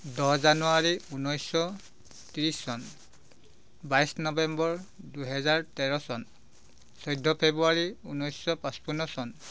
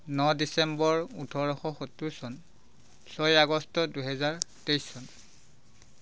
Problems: constant background noise